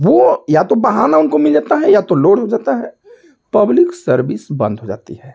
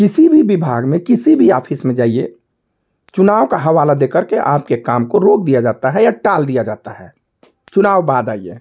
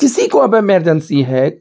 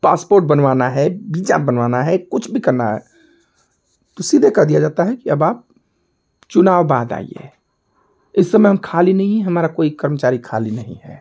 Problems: constant background noise